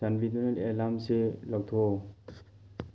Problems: background sounds at intervals